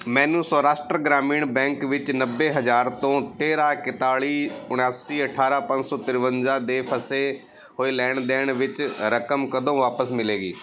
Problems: background sounds at intervals, background conversations at intervals